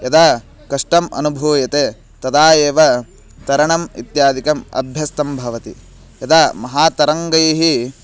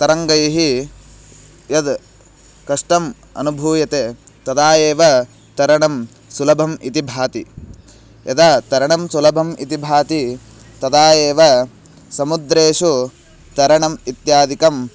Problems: none marked